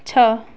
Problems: constant background noise